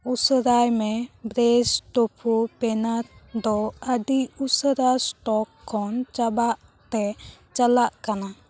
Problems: background conversations at intervals